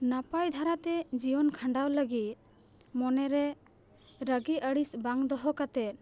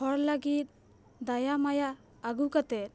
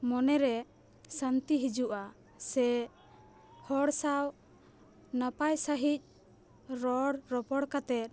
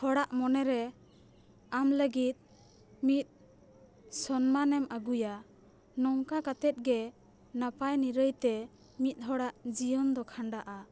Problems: background sounds at intervals